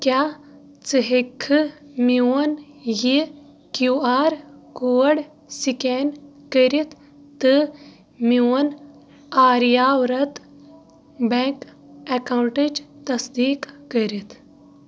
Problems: none marked